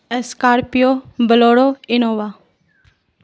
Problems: none marked